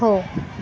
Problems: constant background noise, background conversations at intervals